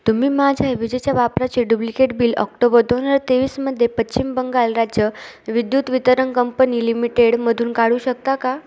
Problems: none marked